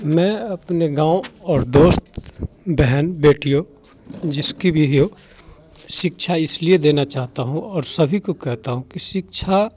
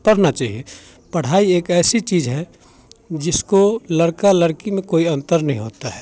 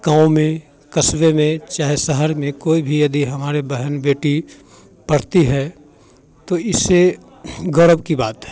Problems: none marked